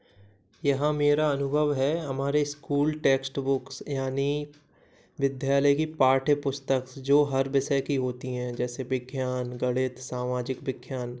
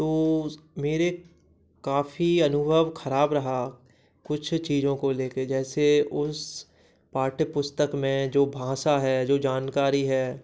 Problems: background sounds at intervals